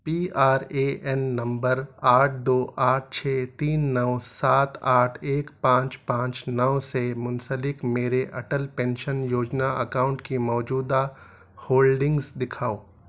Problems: none marked